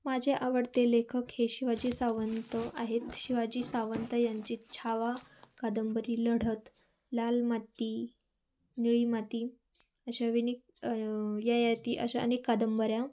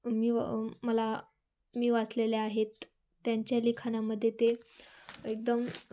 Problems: background sounds at intervals